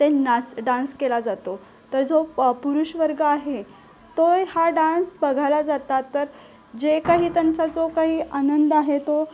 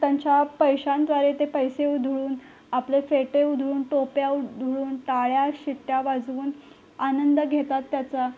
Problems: constant background noise, background conversations at intervals